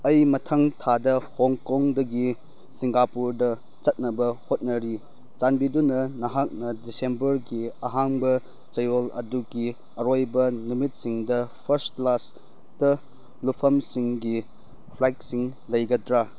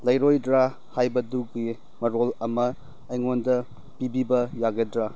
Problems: none marked